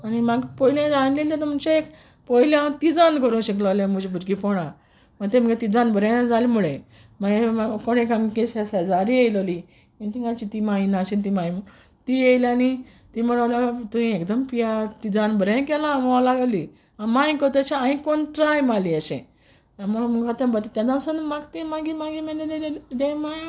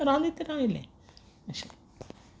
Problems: background sounds at intervals